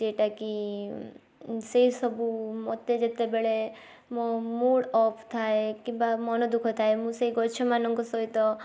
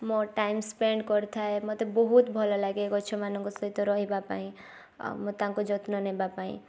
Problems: none marked